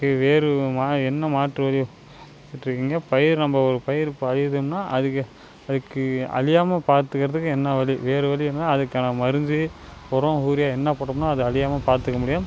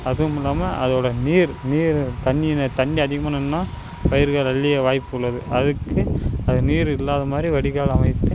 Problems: constant background noise